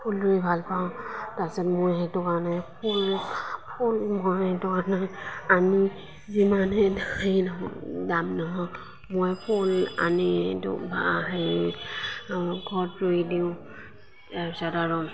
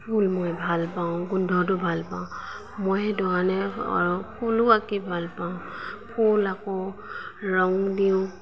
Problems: constant background noise, background conversations at intervals